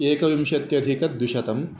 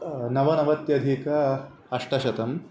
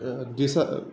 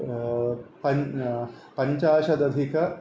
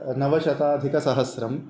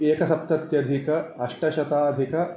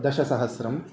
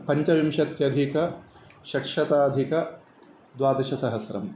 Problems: constant background noise